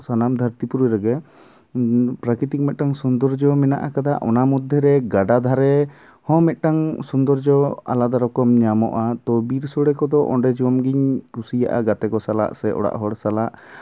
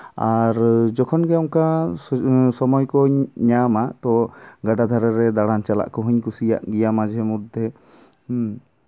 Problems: background sounds at intervals